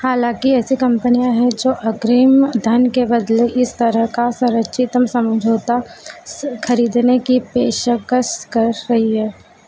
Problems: none marked